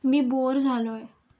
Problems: none marked